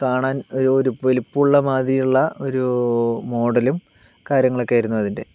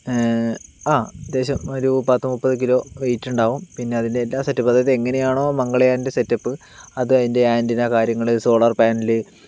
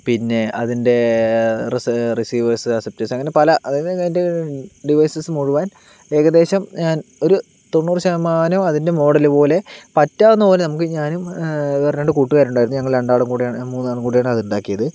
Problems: none marked